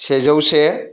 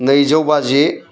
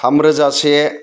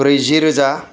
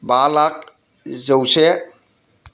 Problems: constant background noise